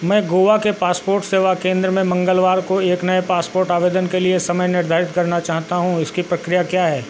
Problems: constant background noise